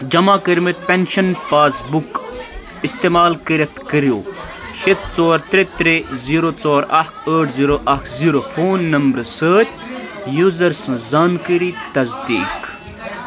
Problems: constant background noise